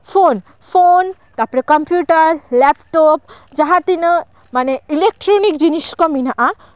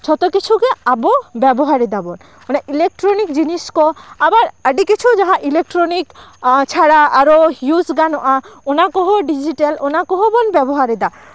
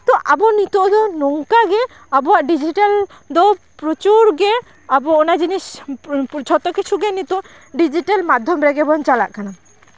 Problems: constant background noise, continuous background conversations